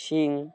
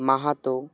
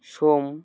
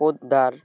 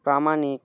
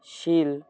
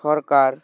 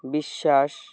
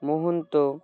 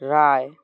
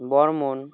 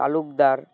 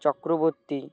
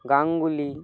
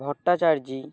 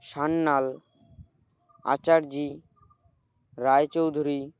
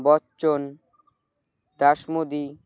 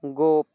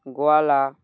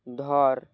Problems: none marked